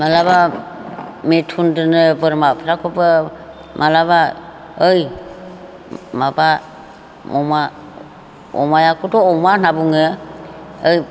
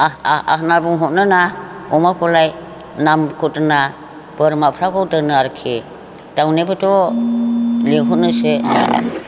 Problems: constant background noise